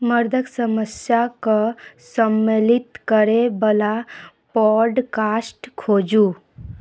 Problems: none marked